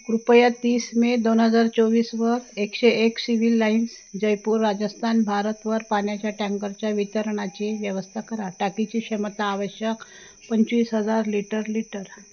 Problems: none marked